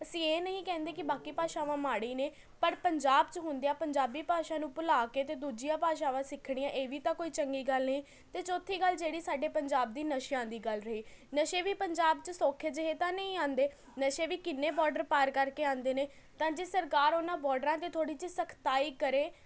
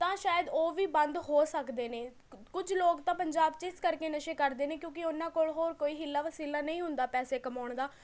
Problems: continuous background conversations